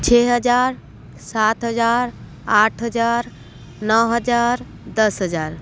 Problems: none marked